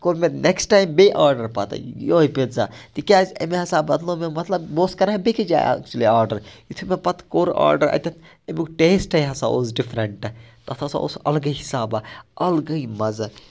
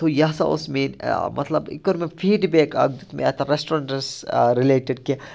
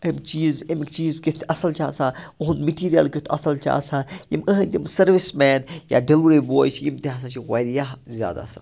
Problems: none marked